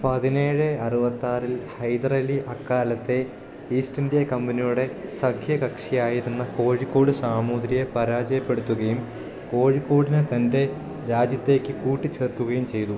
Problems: none marked